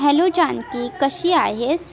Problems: none marked